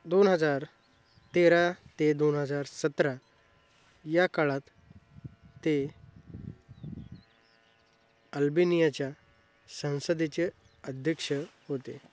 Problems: constant background noise